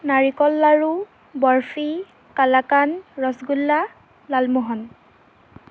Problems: constant background noise